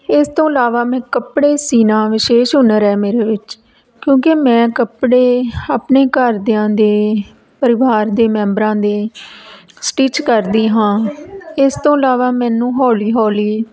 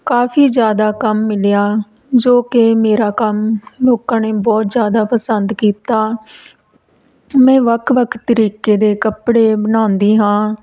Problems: background sounds at intervals